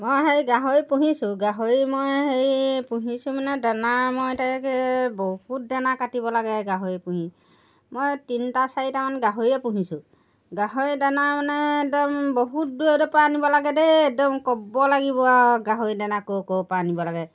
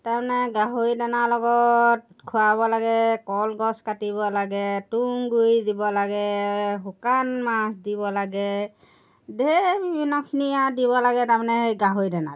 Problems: background sounds at intervals